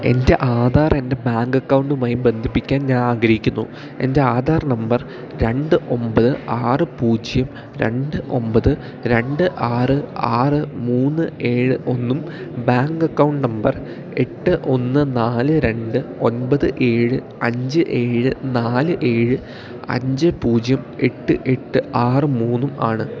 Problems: constant background noise